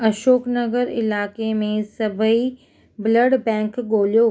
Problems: none marked